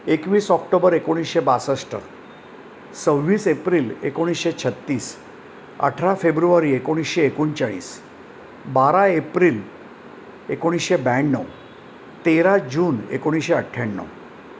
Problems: constant background noise